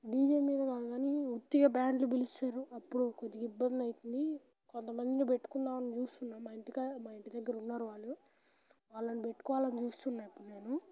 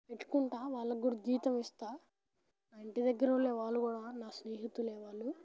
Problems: background sounds at intervals, background conversations at intervals